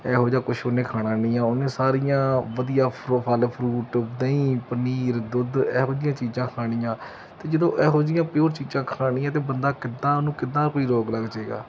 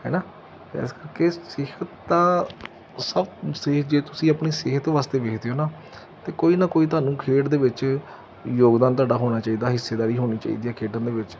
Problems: none marked